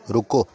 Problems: background sounds at intervals